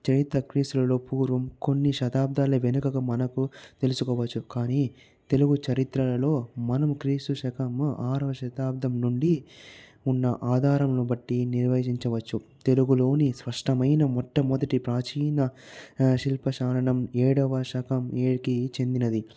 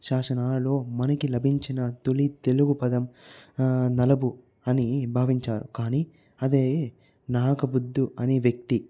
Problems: low volume